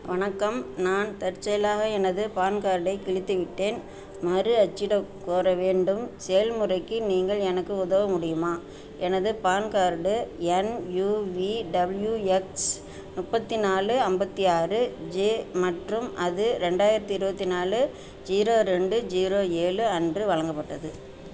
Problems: background sounds at intervals